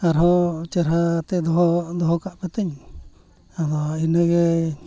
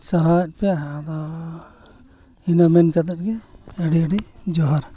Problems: background sounds at intervals, background conversations at intervals